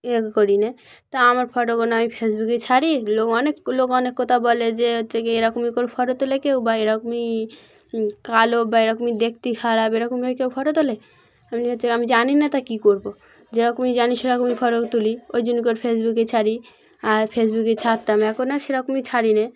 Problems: none marked